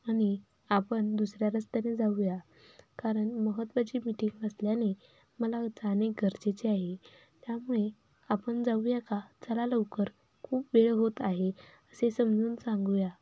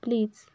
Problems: none marked